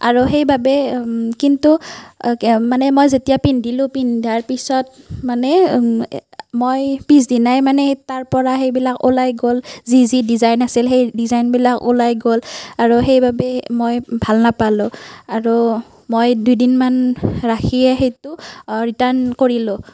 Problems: none marked